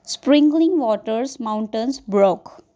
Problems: background sounds at intervals